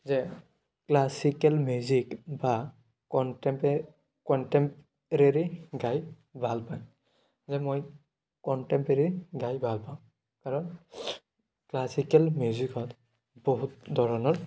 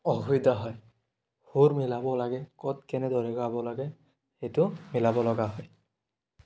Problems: none marked